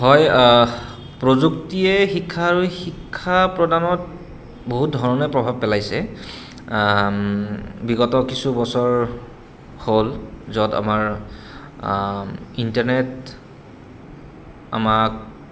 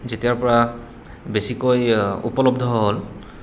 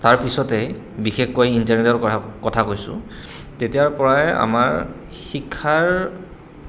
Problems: constant background noise